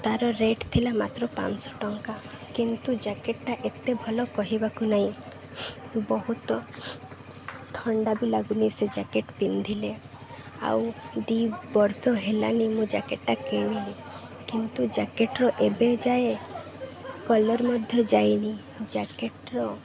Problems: constant background noise